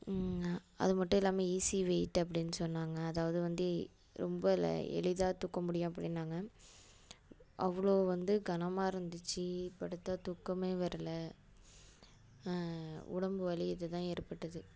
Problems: constant background noise